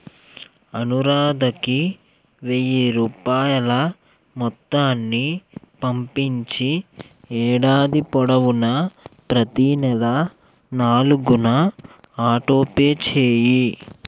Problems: background sounds at intervals